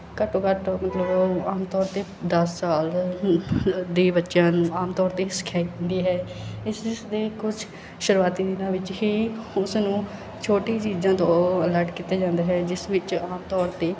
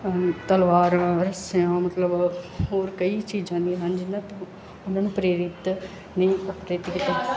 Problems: background sounds at intervals